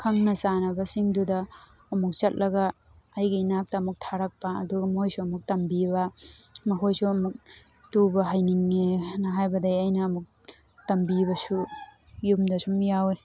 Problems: background sounds at intervals